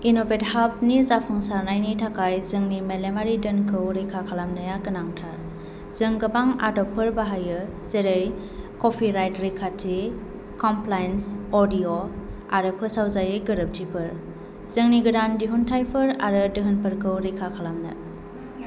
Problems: constant background noise